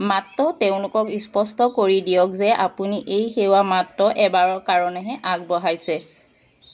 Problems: constant background noise